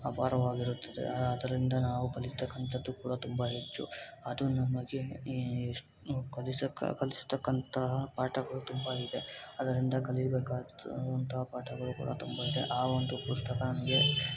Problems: background sounds at intervals